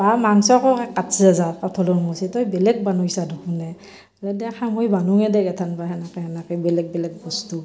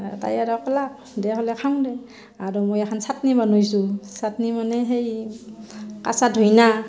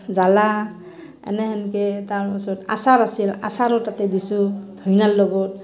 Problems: background sounds at intervals, background conversations at intervals